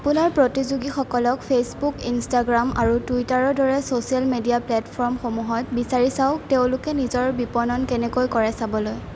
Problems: constant background noise